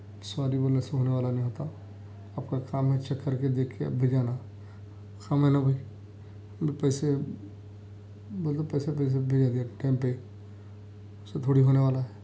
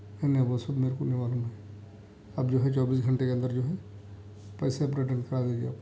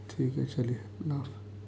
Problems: constant background noise, low volume